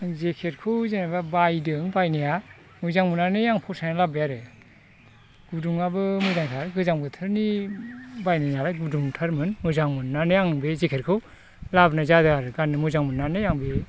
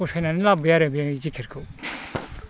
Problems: constant background noise